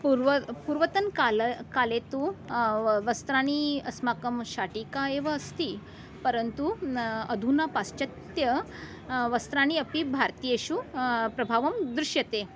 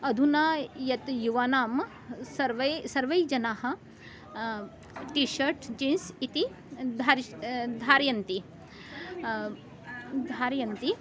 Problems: background conversations at intervals